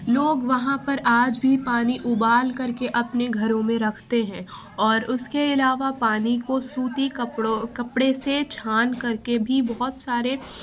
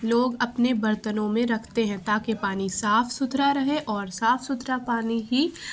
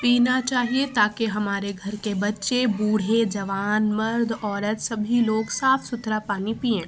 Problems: constant background noise, background conversations at intervals